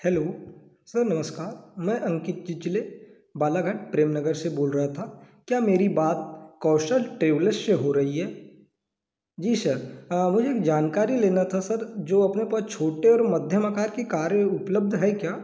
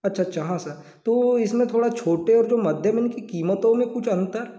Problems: background sounds at intervals